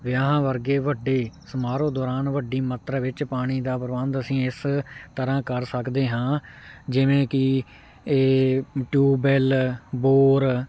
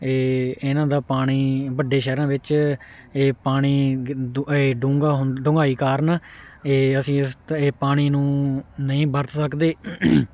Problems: none marked